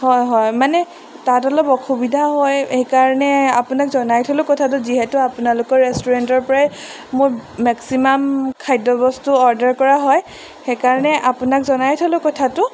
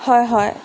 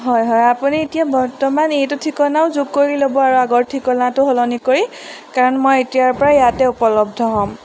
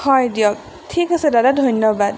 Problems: background sounds at intervals